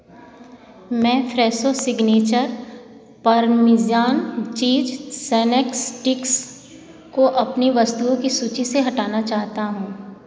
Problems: background sounds at intervals